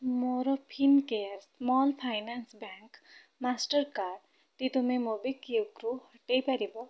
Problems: none marked